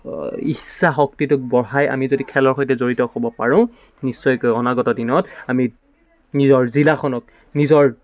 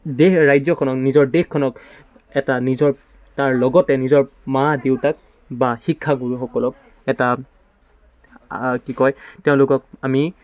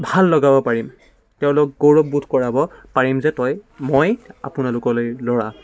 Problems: background sounds at intervals